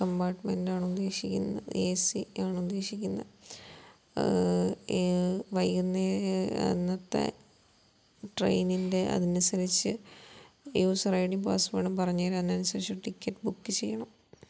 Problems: low volume